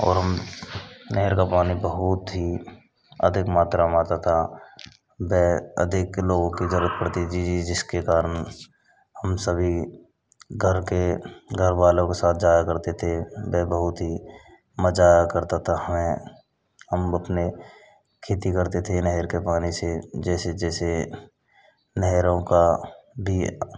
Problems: none marked